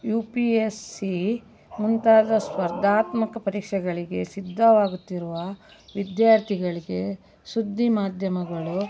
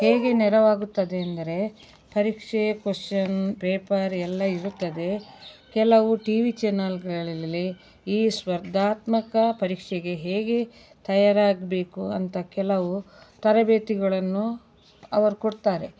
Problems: background sounds at intervals